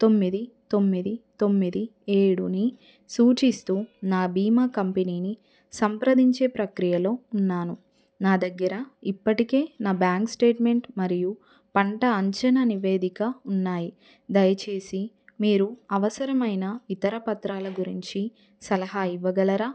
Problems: none marked